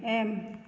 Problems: none marked